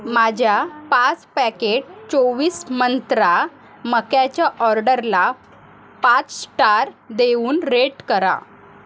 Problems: constant background noise, continuous background conversations